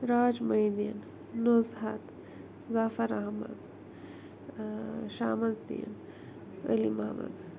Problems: low volume